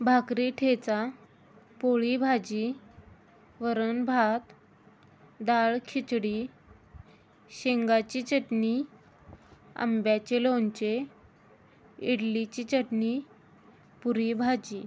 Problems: background sounds at intervals